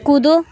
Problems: background sounds at intervals